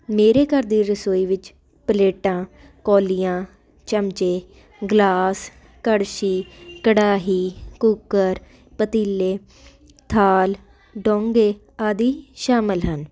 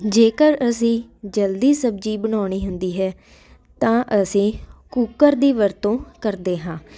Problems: none marked